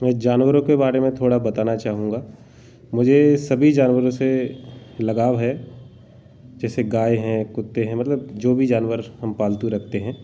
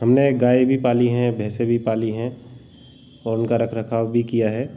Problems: none marked